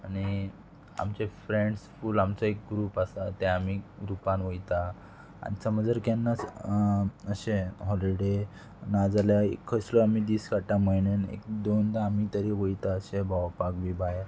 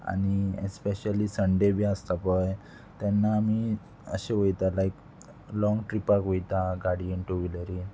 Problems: constant background noise